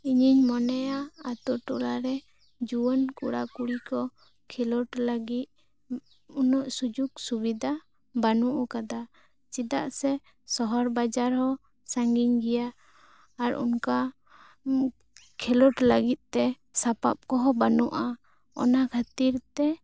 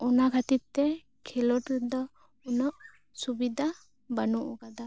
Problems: none marked